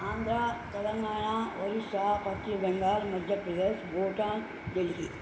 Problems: constant background noise